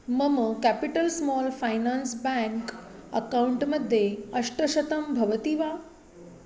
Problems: none marked